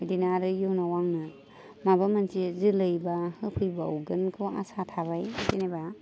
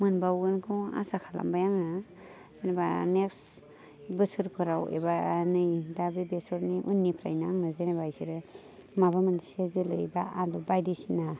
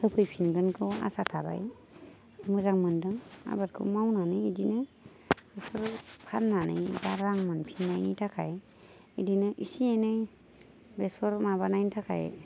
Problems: none marked